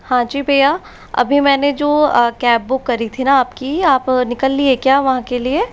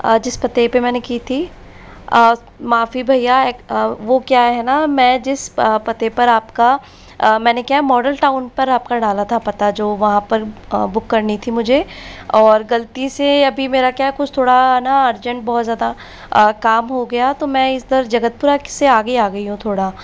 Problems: constant background noise